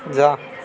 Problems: constant background noise, continuous background conversations